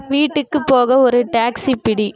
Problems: background sounds at intervals